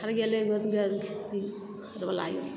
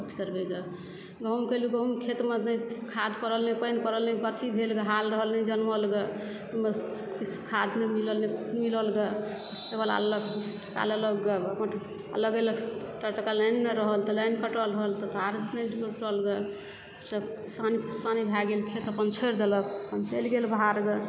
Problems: background sounds at intervals, background conversations at intervals